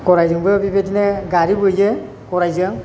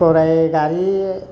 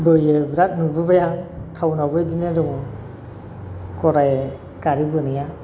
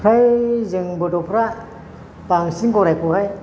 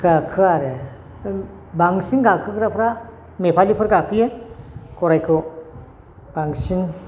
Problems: constant background noise